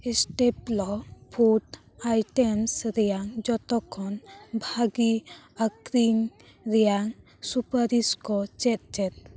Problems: background sounds at intervals, continuous background conversations